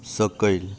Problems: constant background noise